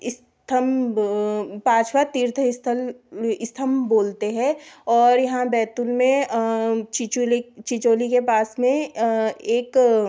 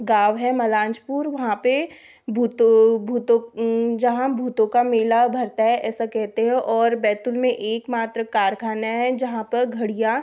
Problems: background sounds at intervals